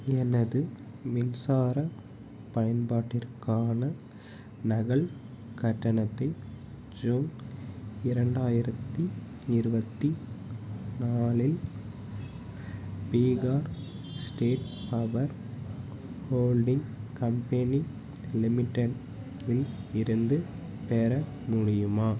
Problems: none marked